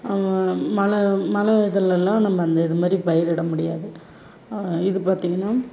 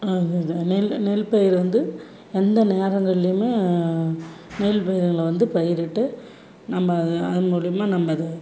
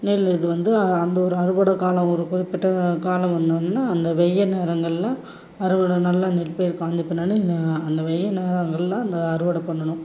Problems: background sounds at intervals